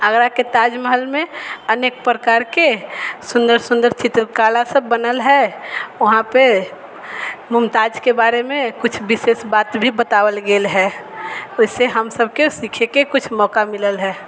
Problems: none marked